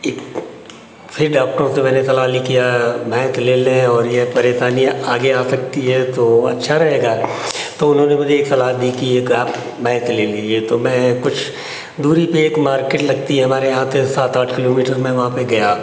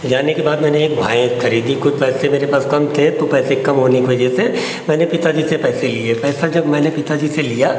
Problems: constant background noise